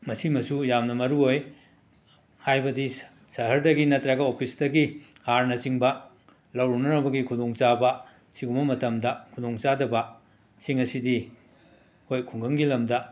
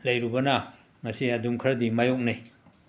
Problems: background sounds at intervals